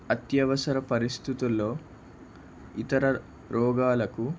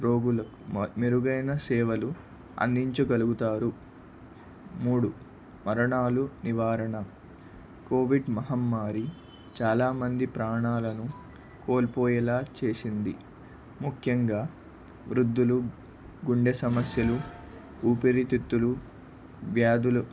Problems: none marked